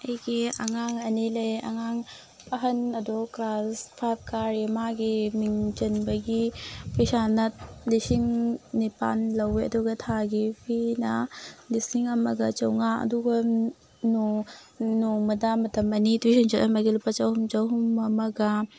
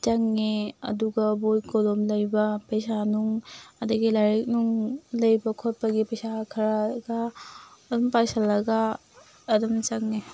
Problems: background sounds at intervals